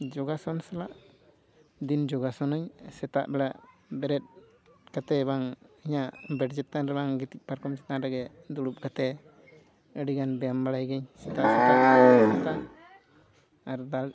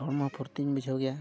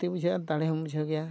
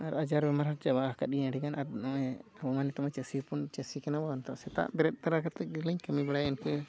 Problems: constant background noise